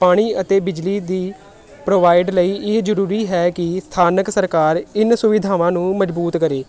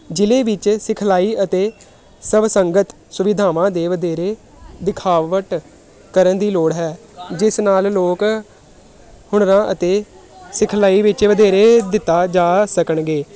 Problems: none marked